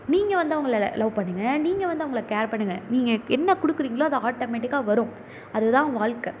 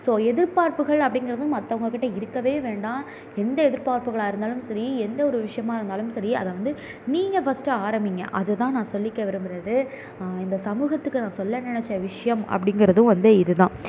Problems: none marked